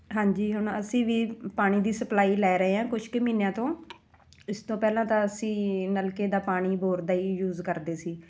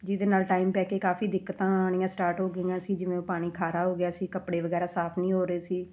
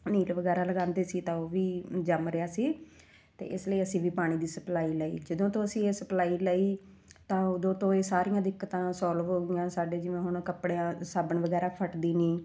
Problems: none marked